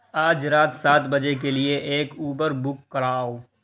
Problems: constant background noise